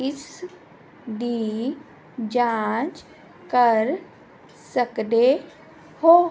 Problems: none marked